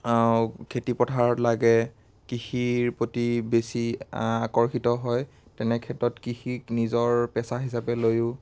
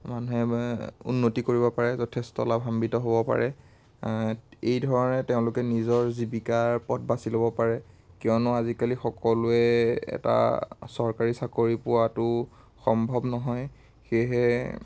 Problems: constant background noise